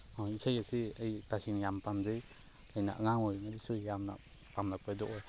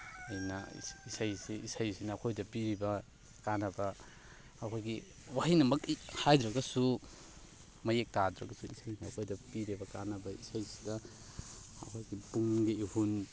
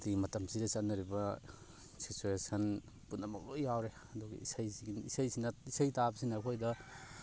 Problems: background sounds at intervals, continuous background conversations